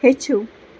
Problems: none marked